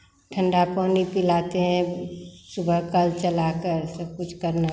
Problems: background sounds at intervals